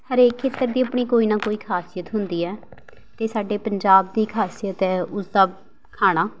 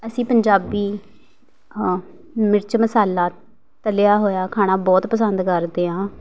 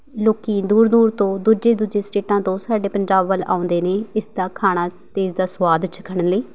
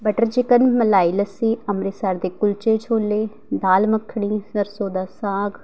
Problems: background sounds at intervals